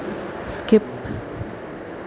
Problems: constant background noise